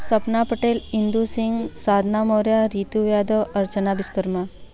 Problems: constant background noise, background conversations at intervals